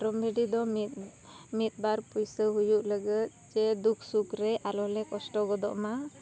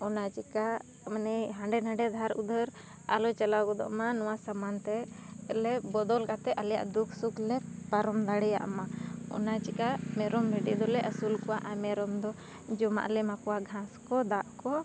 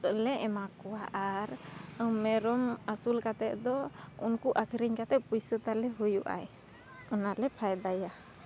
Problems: none marked